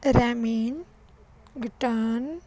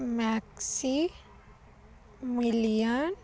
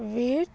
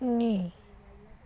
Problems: constant background noise